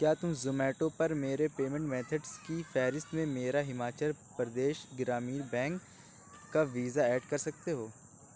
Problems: none marked